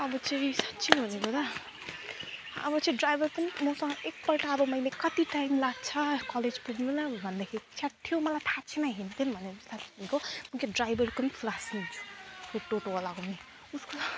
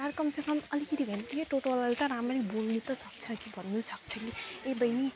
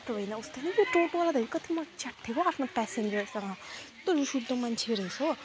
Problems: none marked